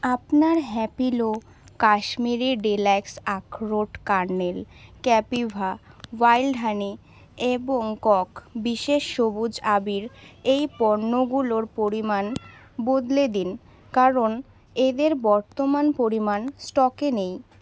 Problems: constant background noise, background conversations at intervals